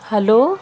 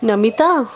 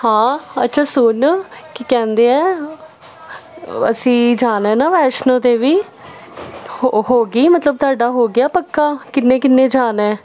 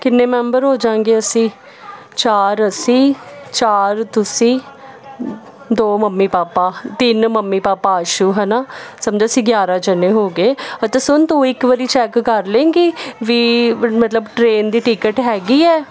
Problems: constant background noise